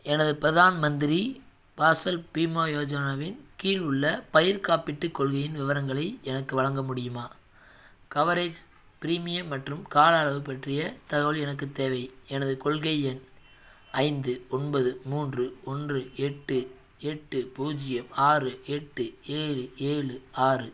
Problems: none marked